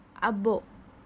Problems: none marked